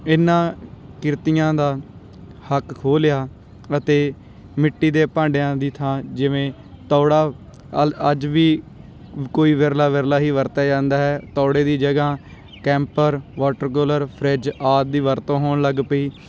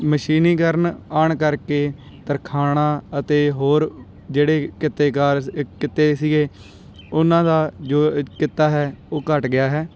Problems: none marked